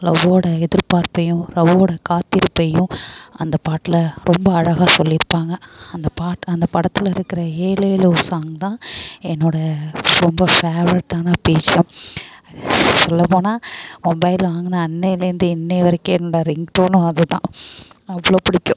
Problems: constant background noise